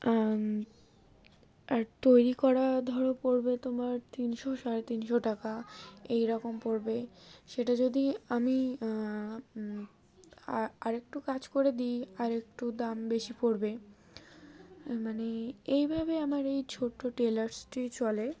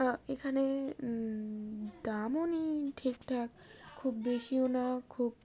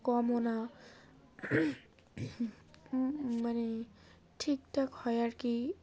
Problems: background sounds at intervals, background conversations at intervals